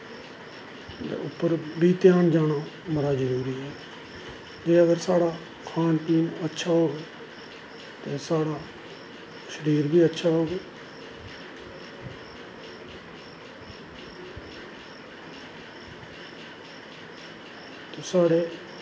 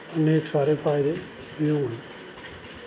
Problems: constant background noise, echo